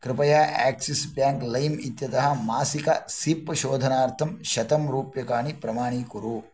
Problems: none marked